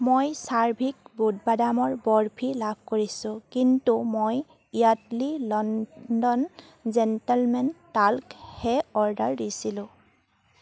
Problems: none marked